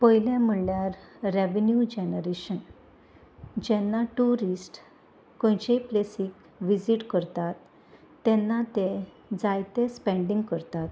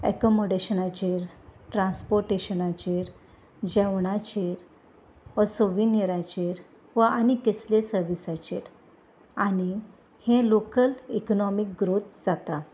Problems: constant background noise